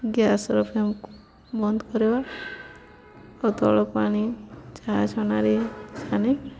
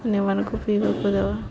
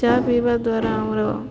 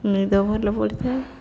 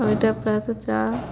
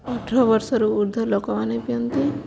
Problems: none marked